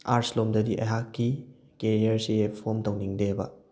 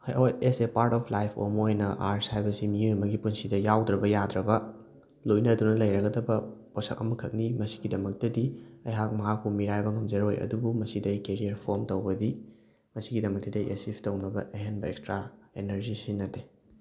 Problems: none marked